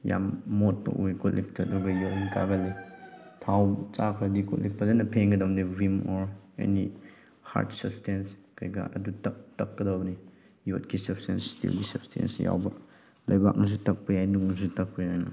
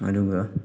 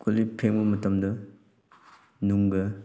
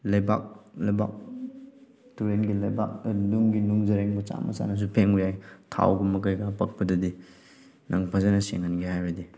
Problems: background sounds at intervals